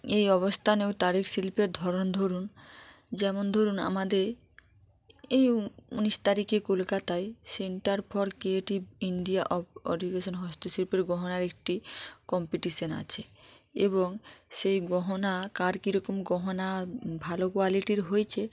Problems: background sounds at intervals